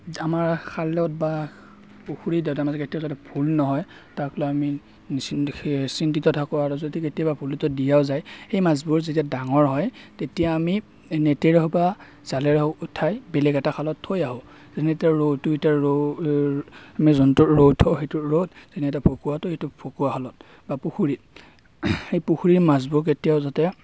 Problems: none marked